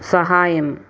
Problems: constant background noise